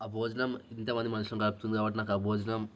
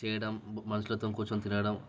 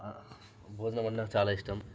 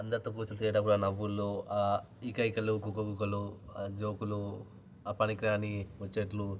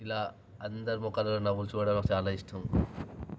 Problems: background sounds at intervals